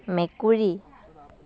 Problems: background conversations at intervals